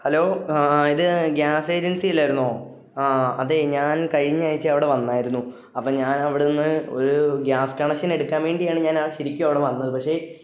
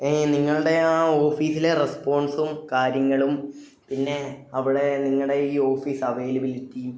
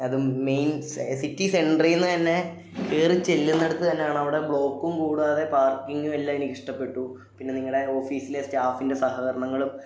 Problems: none marked